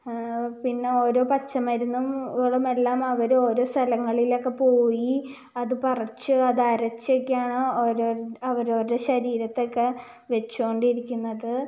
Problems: low volume